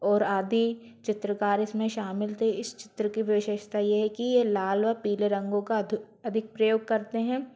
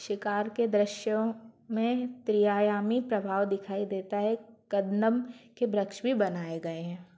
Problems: constant background noise